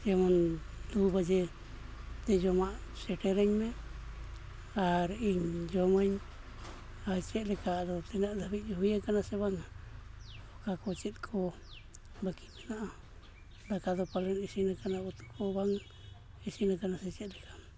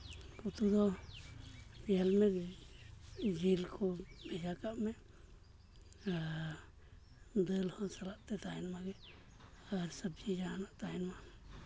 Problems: background sounds at intervals, low volume